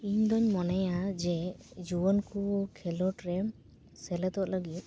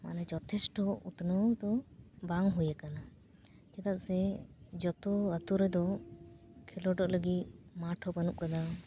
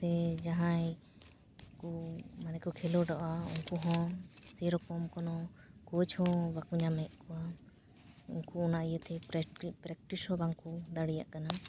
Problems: background sounds at intervals